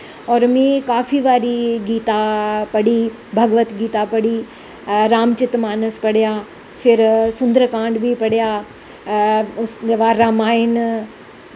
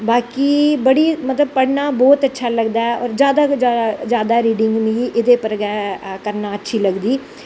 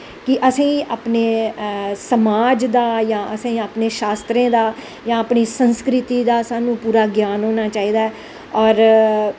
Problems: constant background noise